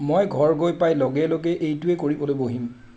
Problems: constant background noise